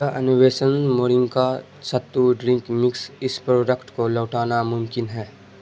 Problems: constant background noise